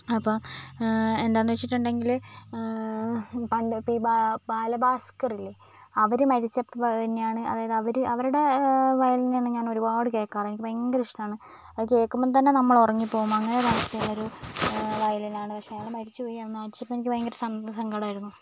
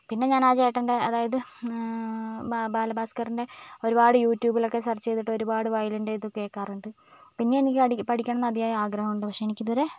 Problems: background sounds at intervals